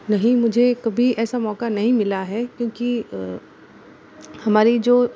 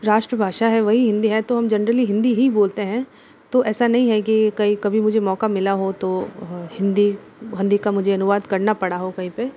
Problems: constant background noise